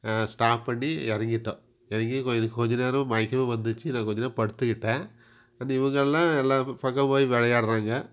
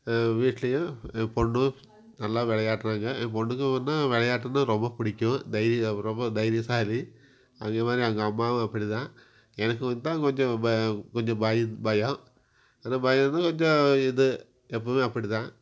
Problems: none marked